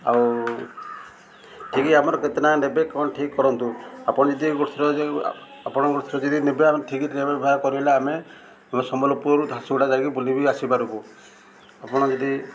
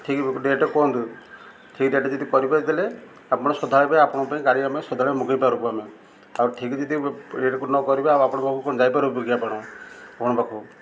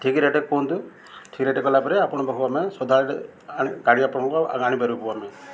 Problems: none marked